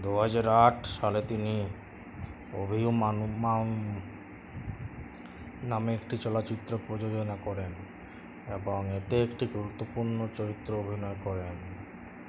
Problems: none marked